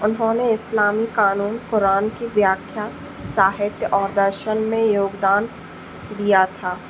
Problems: constant background noise